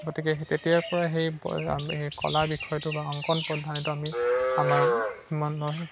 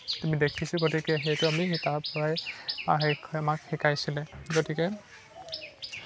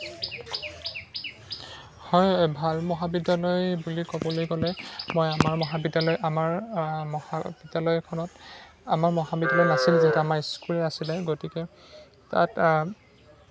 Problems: constant background noise, background conversations at intervals